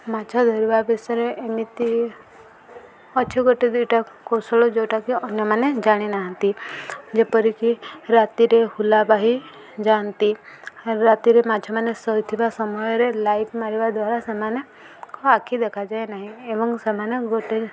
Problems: constant background noise, continuous background conversations